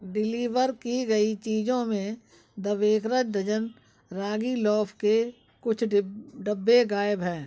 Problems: background sounds at intervals